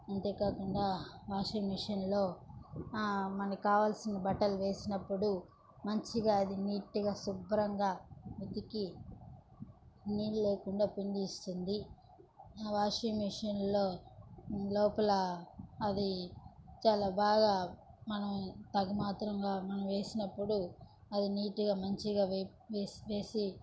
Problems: low volume